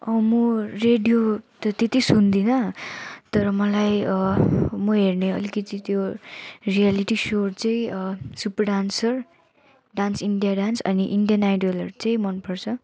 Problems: background sounds at intervals